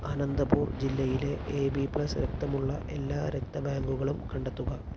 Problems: low volume